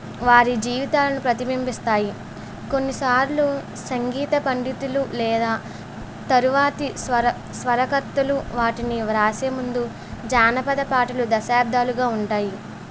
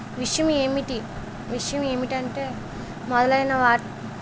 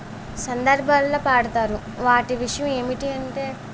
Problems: constant background noise